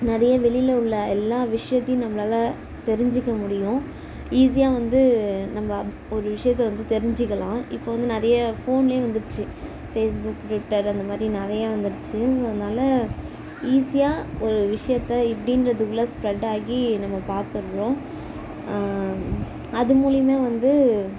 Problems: none marked